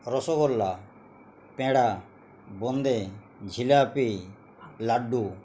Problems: constant background noise